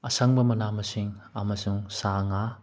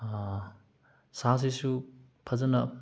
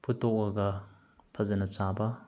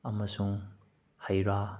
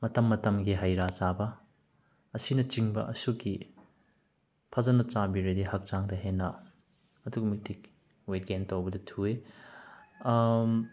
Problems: background sounds at intervals